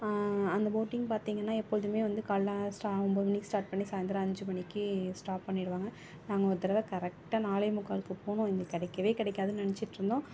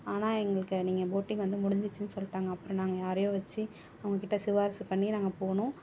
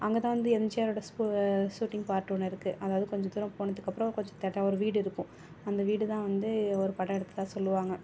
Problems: background sounds at intervals